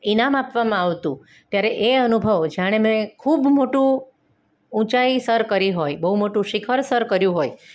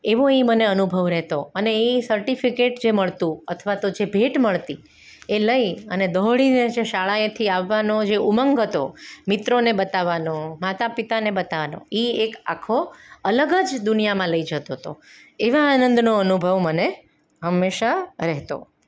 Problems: none marked